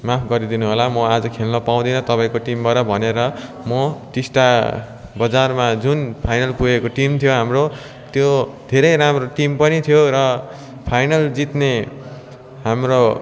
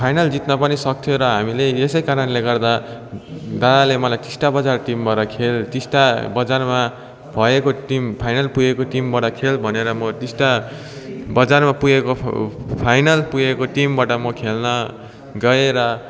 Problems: continuous background conversations